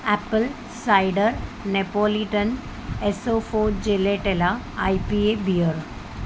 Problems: constant background noise